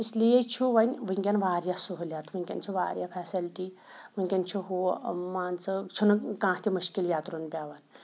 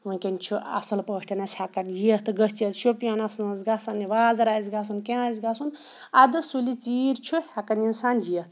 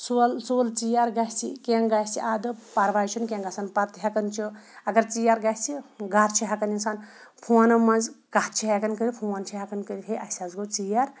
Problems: background sounds at intervals